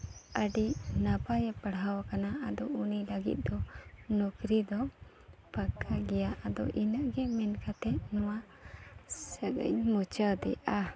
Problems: none marked